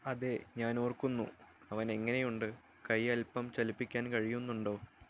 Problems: low volume